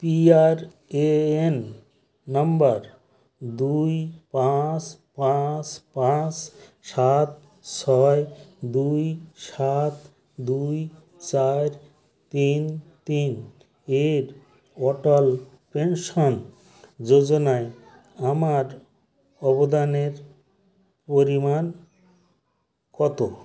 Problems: constant background noise, continuous background conversations